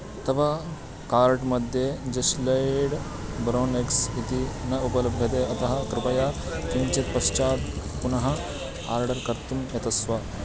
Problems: background sounds at intervals